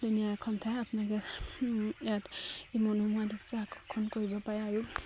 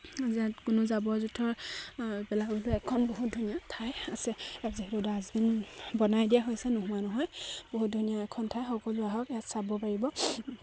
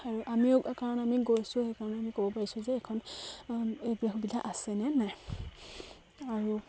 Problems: constant background noise, background conversations at intervals